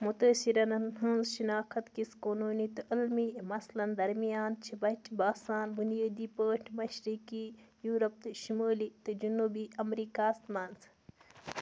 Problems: constant background noise